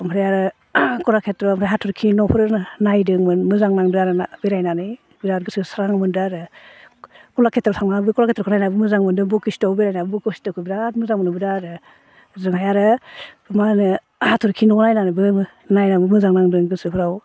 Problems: none marked